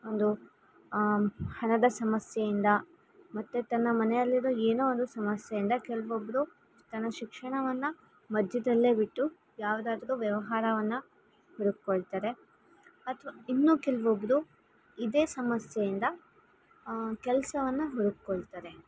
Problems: background sounds at intervals